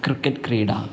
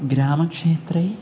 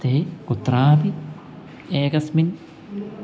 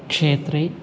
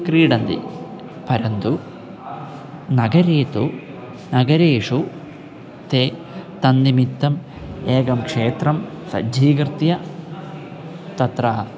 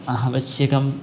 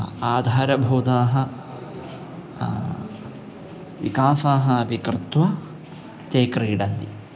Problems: background sounds at intervals